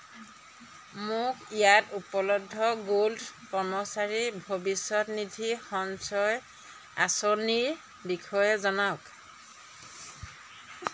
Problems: none marked